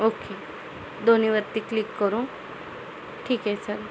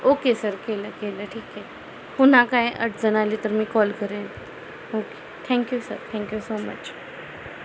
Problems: constant background noise